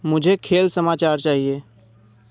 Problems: constant background noise